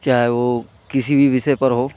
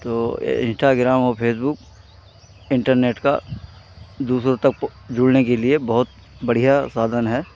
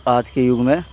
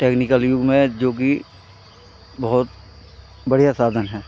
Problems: constant background noise